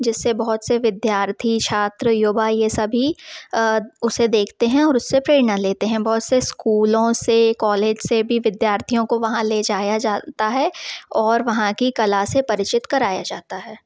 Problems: background sounds at intervals